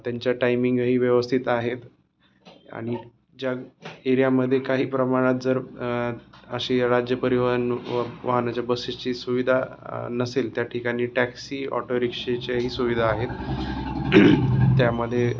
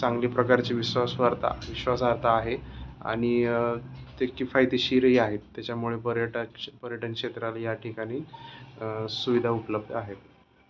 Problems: background sounds at intervals